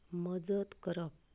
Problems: background sounds at intervals, low volume